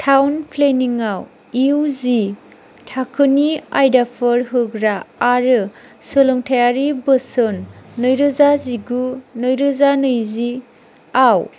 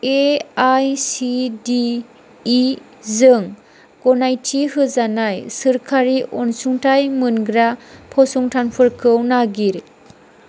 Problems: none marked